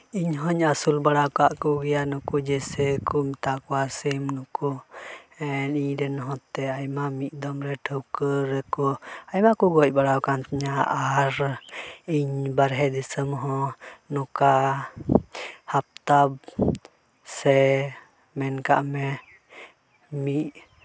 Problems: none marked